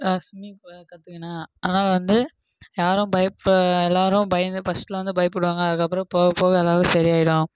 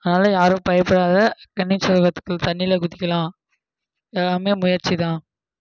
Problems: background sounds at intervals